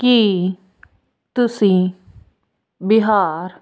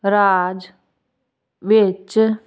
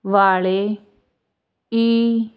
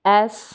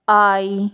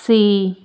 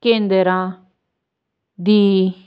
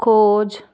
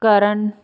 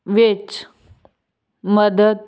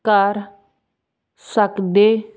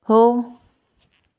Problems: none marked